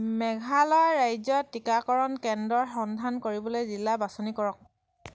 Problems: none marked